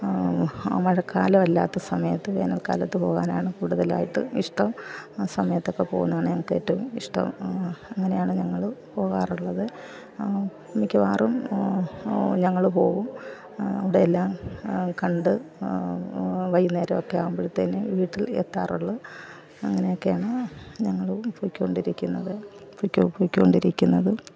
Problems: constant background noise, low volume